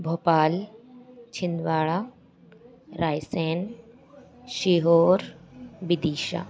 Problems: none marked